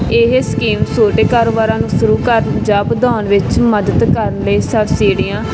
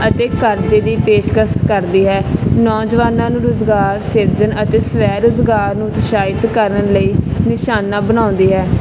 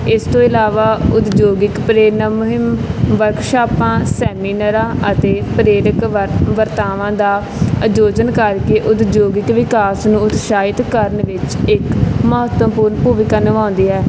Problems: none marked